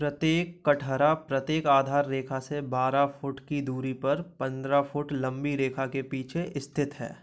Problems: none marked